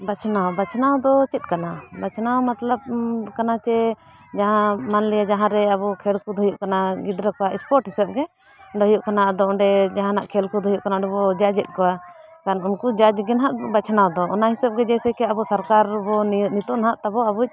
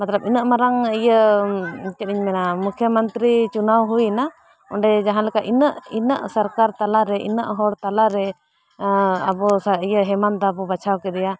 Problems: background conversations at intervals